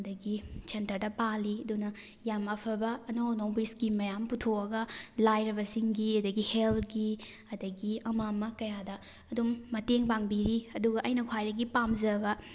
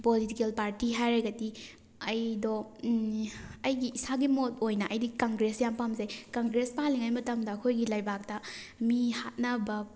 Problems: background sounds at intervals